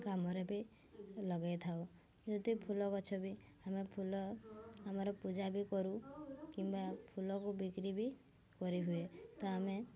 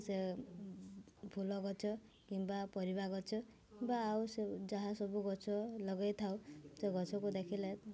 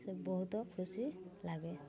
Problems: constant background noise, continuous background conversations